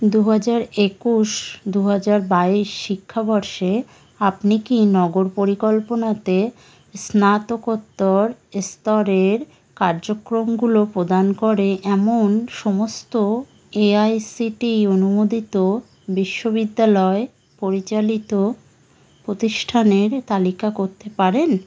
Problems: none marked